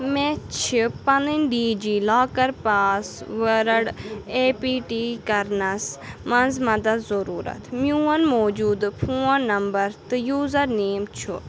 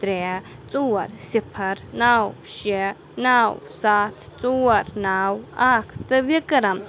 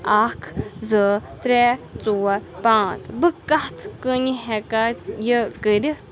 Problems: constant background noise